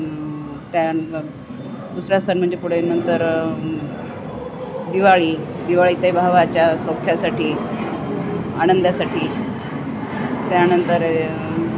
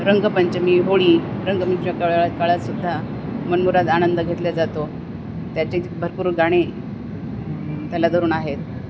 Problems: none marked